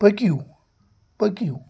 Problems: constant background noise